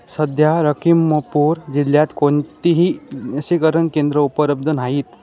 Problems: constant background noise, continuous background conversations